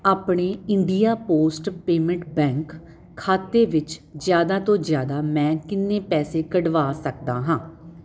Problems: none marked